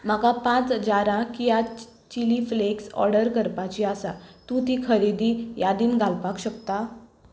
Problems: background sounds at intervals